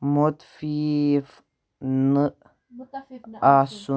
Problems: background sounds at intervals